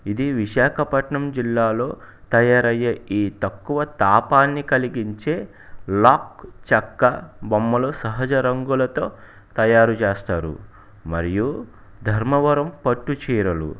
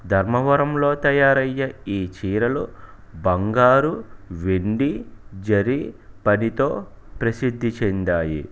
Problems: none marked